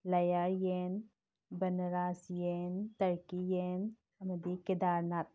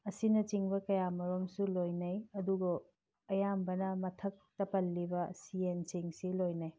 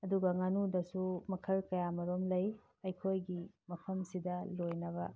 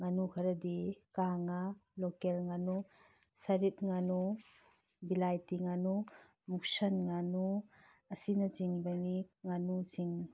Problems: background sounds at intervals